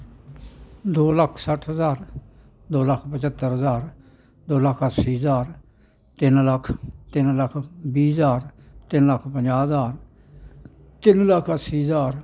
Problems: none marked